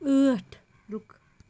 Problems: constant background noise